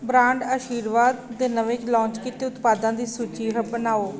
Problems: none marked